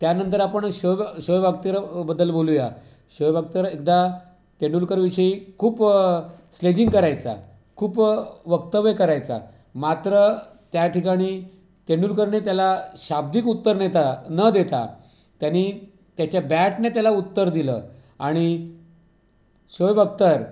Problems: background sounds at intervals